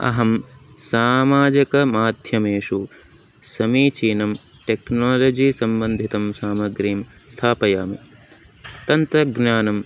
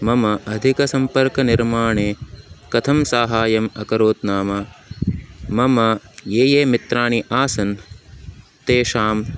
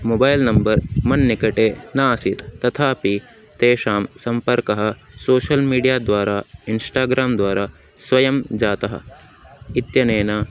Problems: none marked